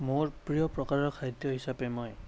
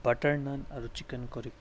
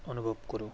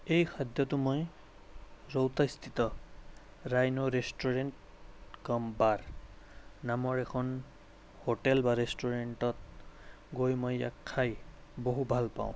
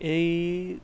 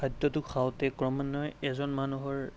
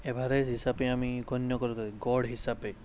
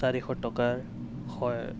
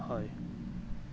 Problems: constant background noise